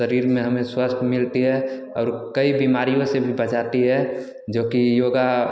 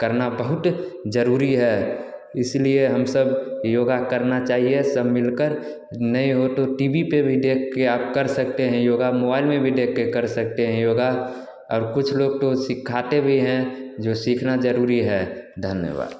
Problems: none marked